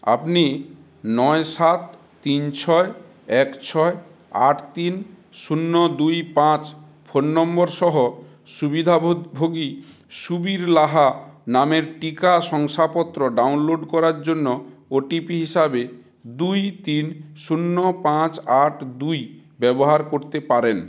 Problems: none marked